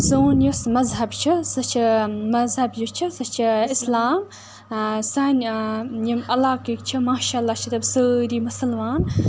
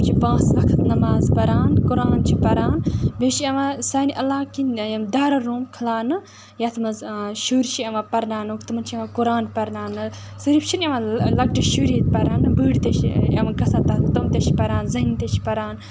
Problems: constant background noise